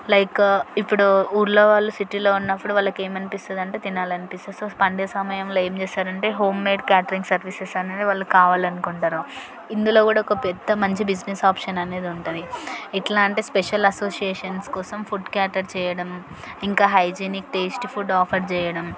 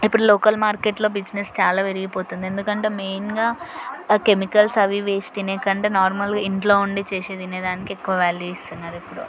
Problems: none marked